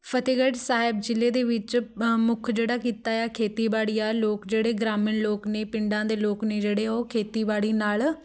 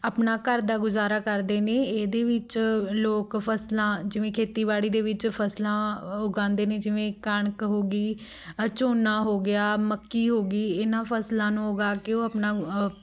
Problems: none marked